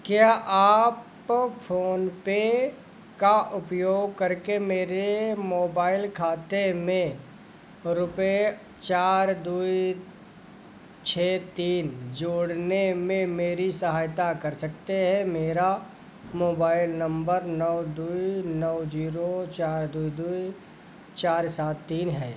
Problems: constant background noise